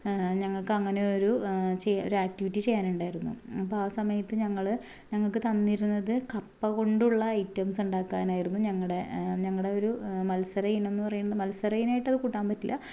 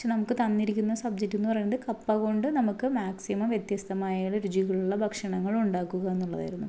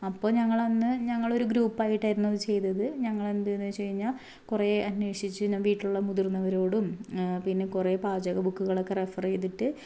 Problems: low volume